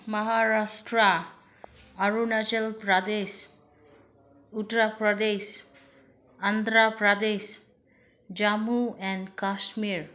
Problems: none marked